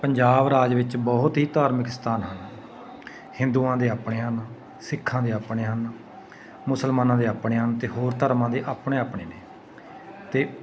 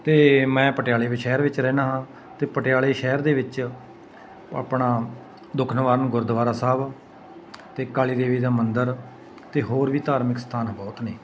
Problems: constant background noise, continuous background conversations